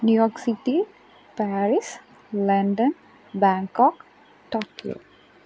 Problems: none marked